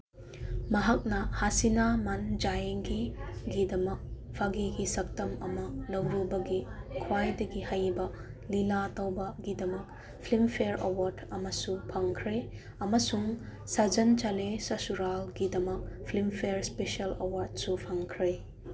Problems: background sounds at intervals